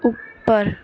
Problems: background sounds at intervals